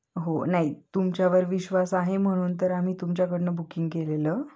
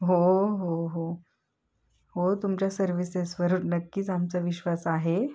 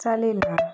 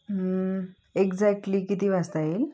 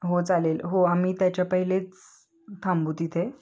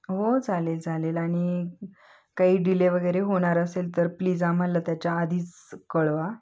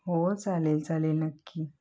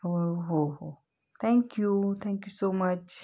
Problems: none marked